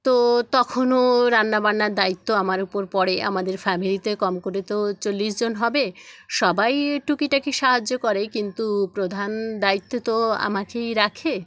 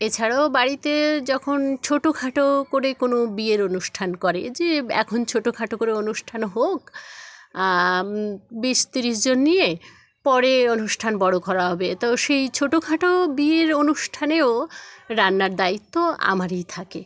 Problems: background sounds at intervals, background conversations at intervals